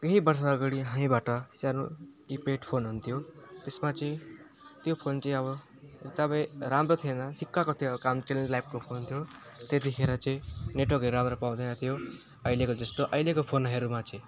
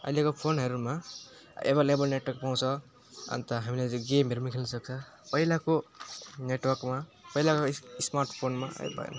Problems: none marked